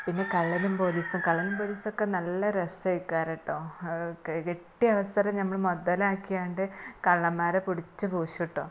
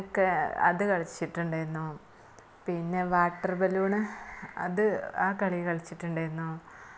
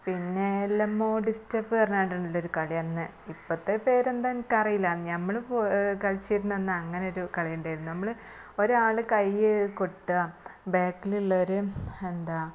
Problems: background sounds at intervals, low volume